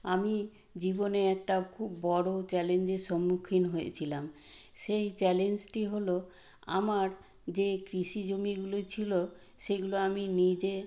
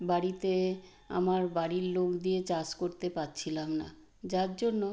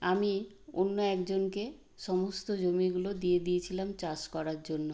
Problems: background sounds at intervals